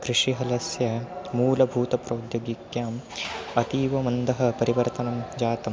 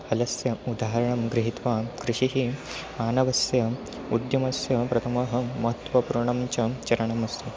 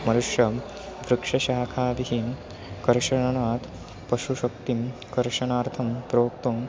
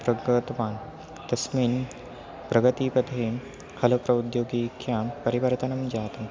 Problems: constant background noise